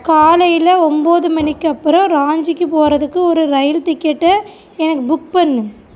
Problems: background conversations at intervals